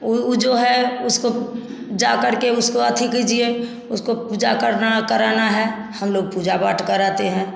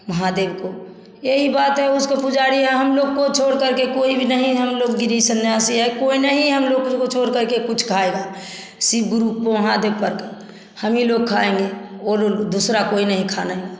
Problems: constant background noise, background conversations at intervals, echo